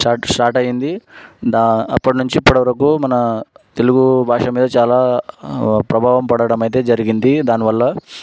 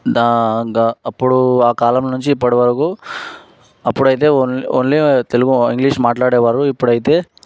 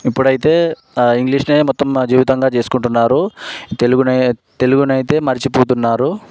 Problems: background sounds at intervals